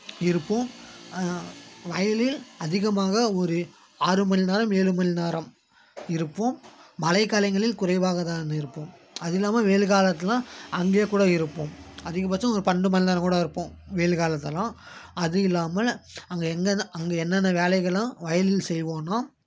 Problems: none marked